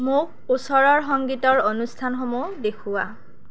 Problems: constant background noise